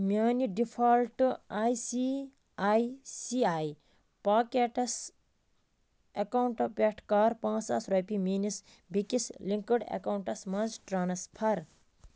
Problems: none marked